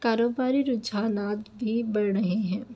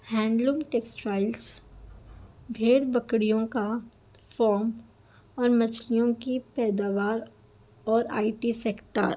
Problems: none marked